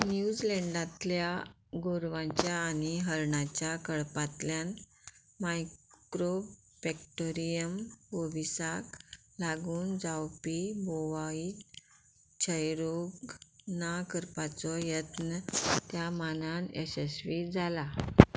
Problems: background sounds at intervals